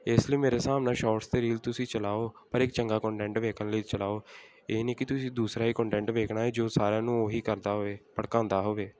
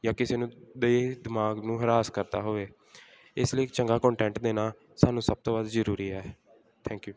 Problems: none marked